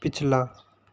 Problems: constant background noise